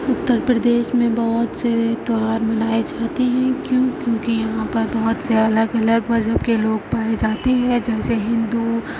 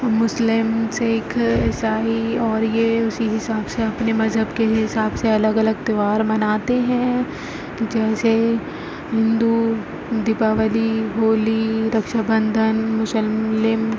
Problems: constant background noise